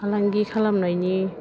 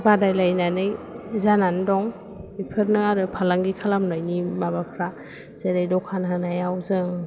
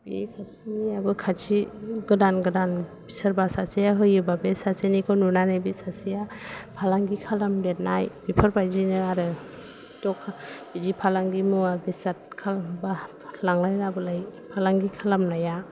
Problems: low volume